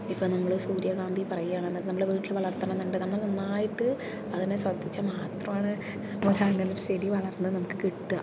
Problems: constant background noise, low volume